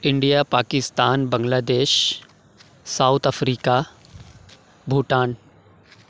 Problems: constant background noise